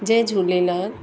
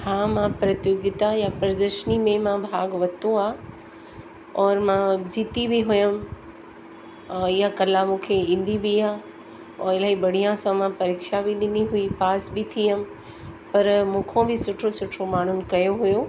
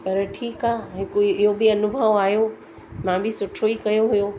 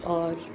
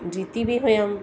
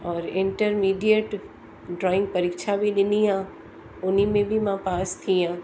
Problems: constant background noise, echo